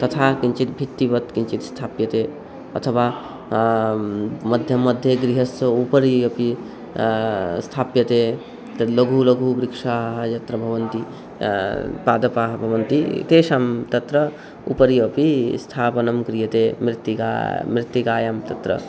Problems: background sounds at intervals